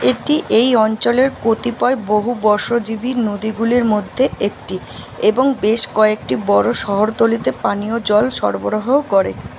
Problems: none marked